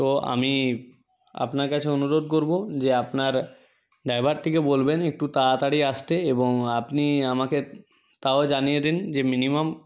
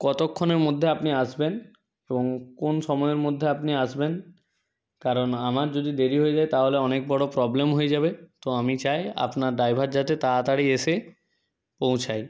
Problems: none marked